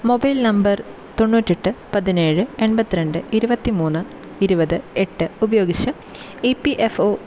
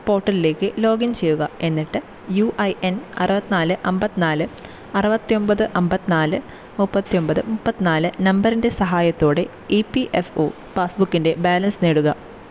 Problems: constant background noise